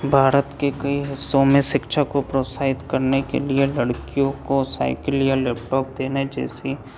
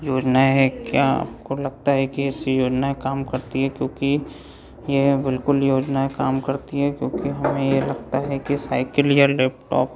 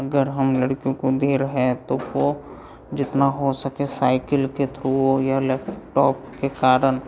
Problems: background sounds at intervals